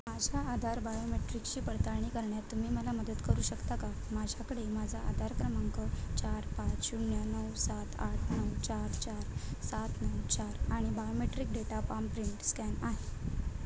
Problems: constant background noise, low volume